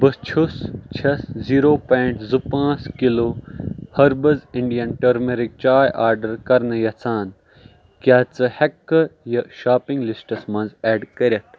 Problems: background sounds at intervals